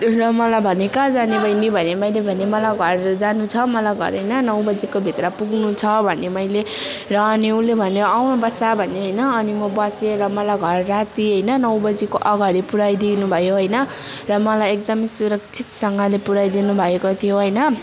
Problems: constant background noise, continuous background conversations